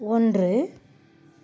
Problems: none marked